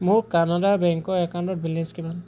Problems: constant background noise